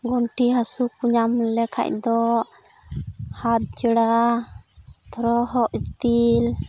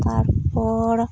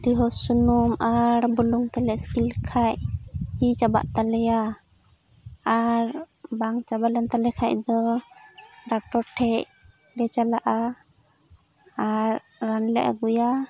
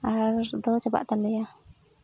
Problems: constant background noise